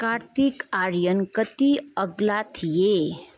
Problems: background conversations at intervals